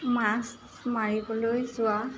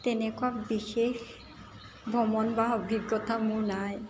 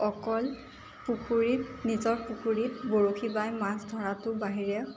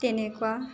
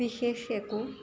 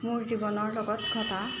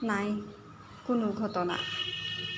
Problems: constant background noise